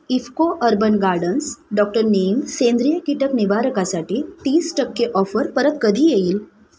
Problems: none marked